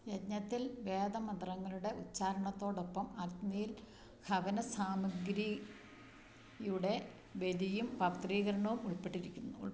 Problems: low volume